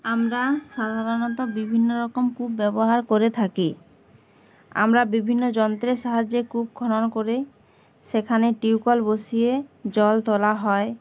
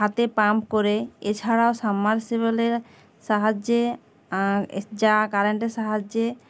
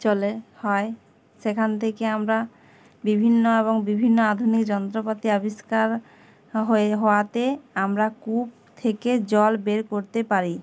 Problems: background sounds at intervals